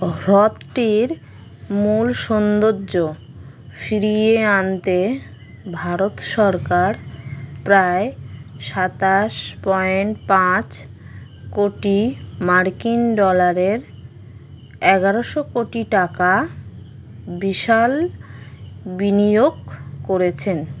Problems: constant background noise